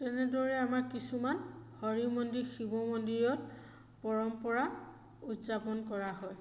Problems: constant background noise, echo